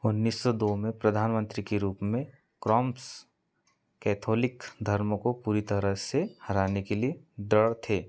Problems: background sounds at intervals